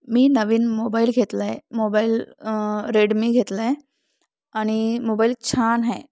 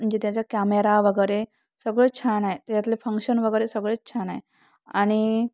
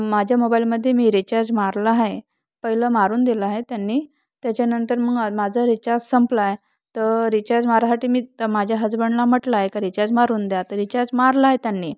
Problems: none marked